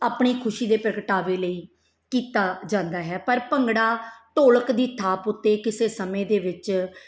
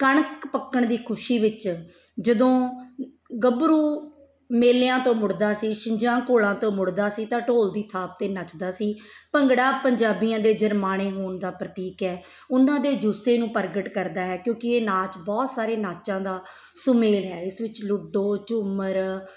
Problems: background sounds at intervals